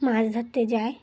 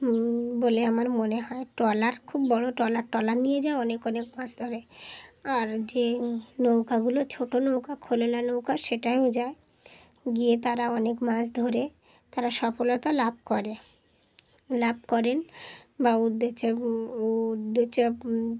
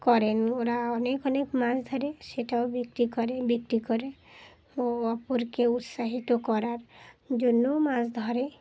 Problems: background sounds at intervals, background conversations at intervals